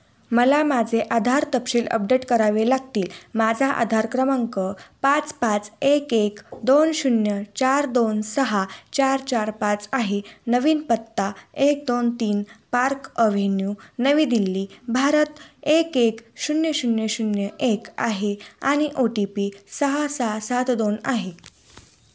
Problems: none marked